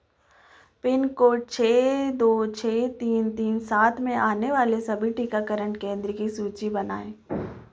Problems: none marked